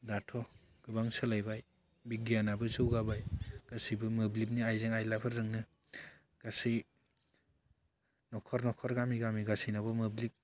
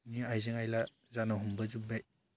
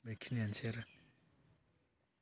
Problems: low volume